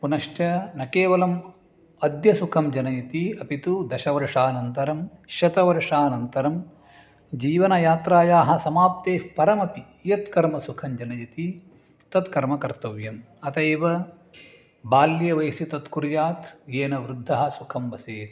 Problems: none marked